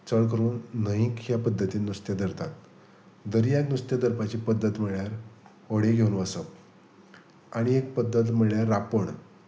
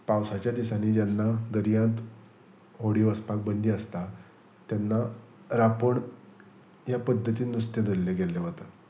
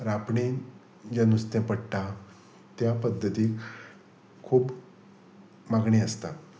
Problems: none marked